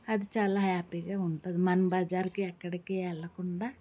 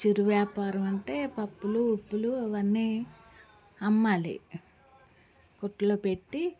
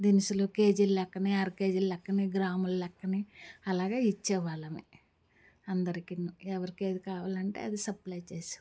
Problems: background sounds at intervals, background conversations at intervals